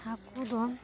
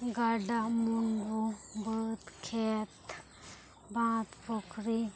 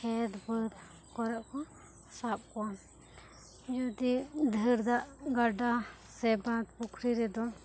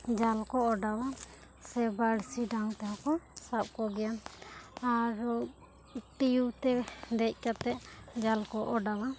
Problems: low volume